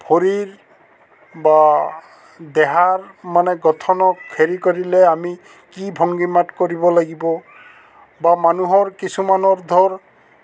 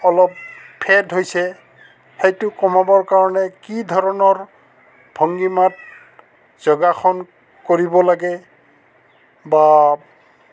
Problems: constant background noise, background conversations at intervals